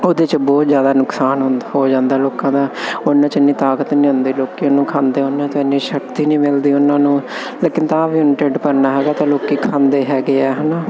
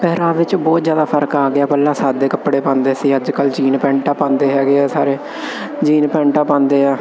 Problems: constant background noise